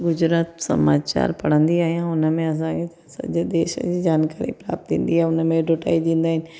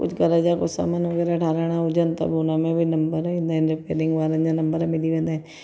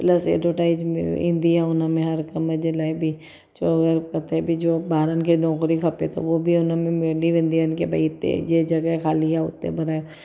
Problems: echo